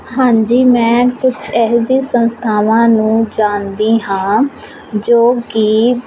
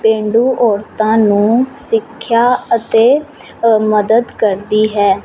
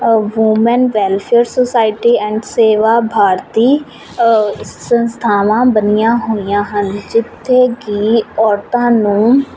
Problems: none marked